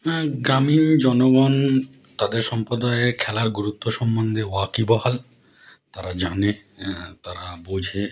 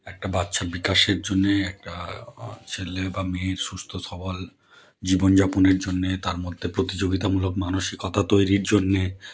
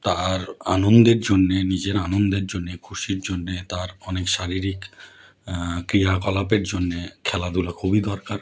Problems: none marked